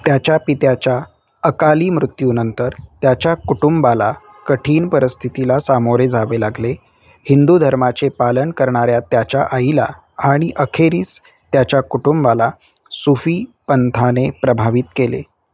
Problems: background sounds at intervals